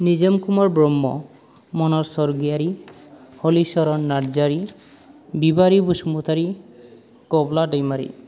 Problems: low volume